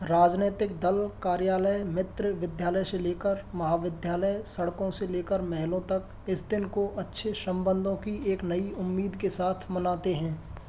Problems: none marked